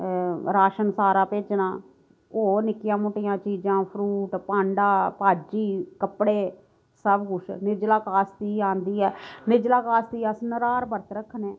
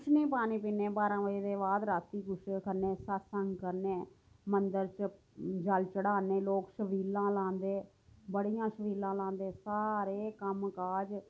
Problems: low volume